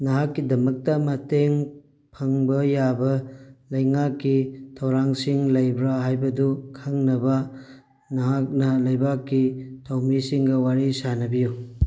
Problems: background sounds at intervals